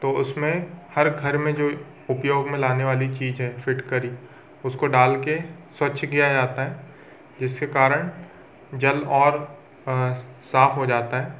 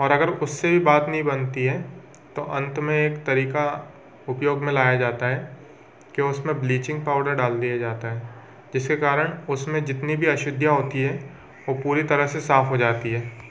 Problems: constant background noise, background conversations at intervals